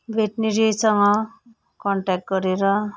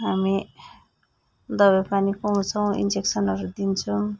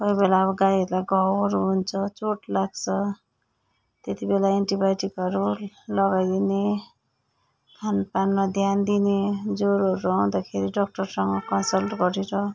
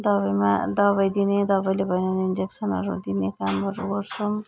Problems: none marked